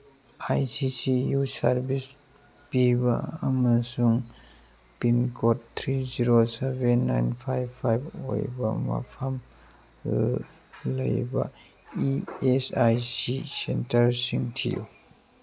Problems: background sounds at intervals